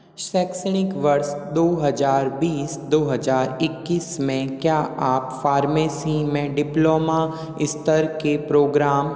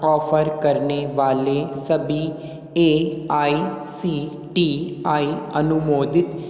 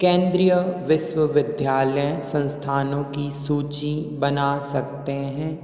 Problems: echo